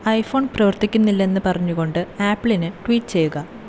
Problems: constant background noise